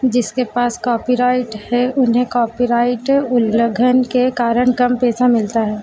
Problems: constant background noise